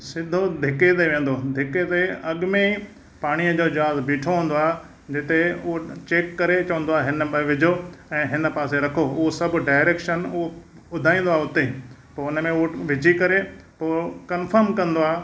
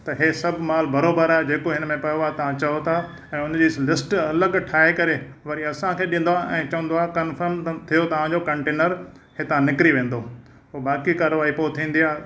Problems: none marked